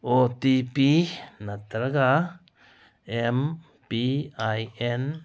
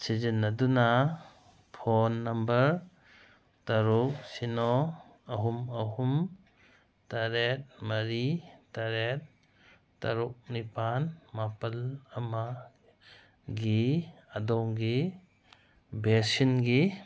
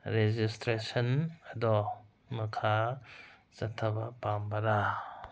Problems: none marked